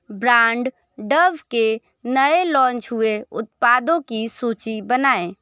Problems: background sounds at intervals